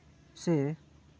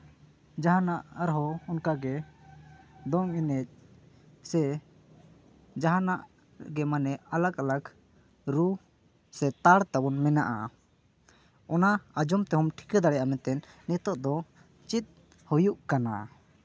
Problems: background sounds at intervals